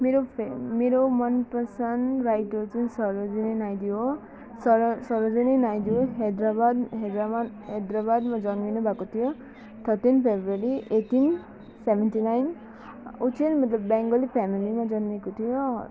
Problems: constant background noise